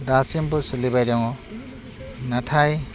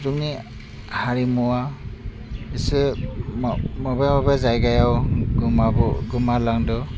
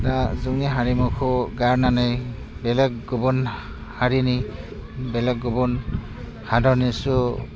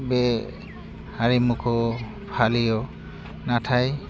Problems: none marked